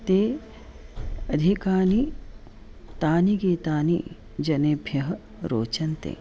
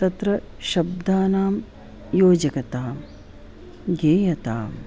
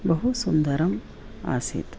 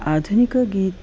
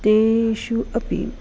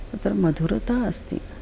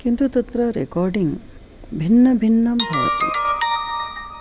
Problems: background sounds at intervals